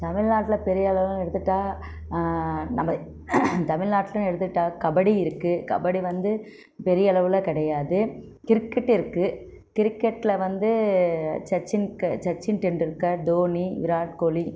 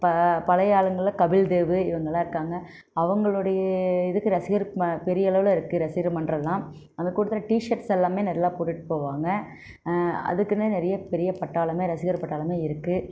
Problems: none marked